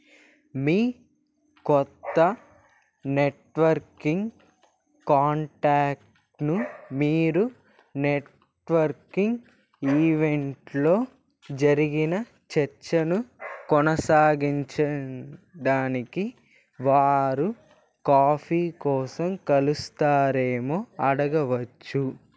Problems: background sounds at intervals